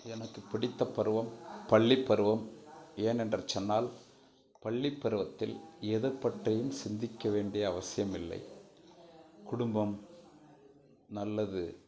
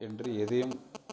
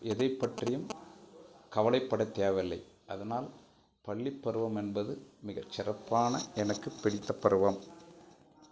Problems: background sounds at intervals